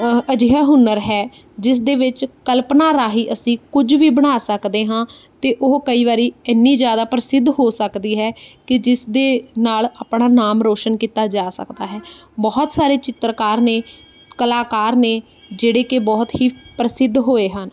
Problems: background sounds at intervals